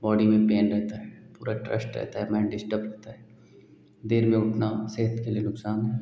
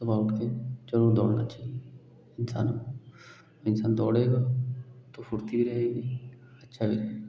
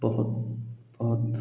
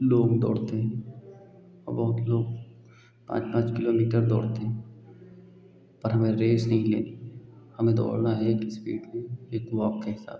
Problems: none marked